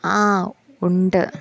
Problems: background sounds at intervals